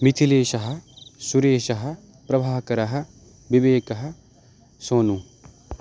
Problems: constant background noise